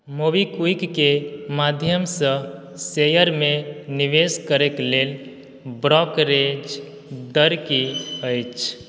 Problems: background sounds at intervals